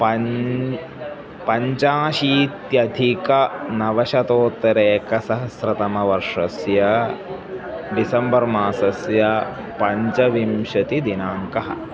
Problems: background sounds at intervals